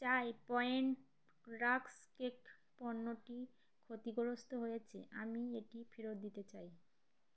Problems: constant background noise